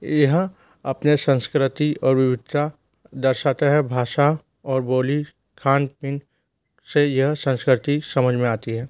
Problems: constant background noise